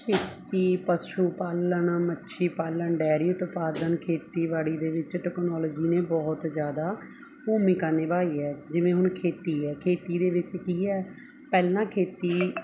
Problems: none marked